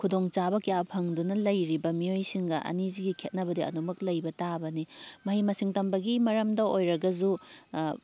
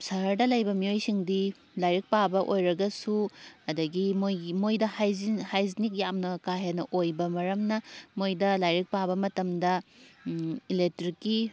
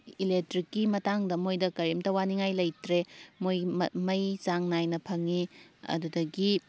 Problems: none marked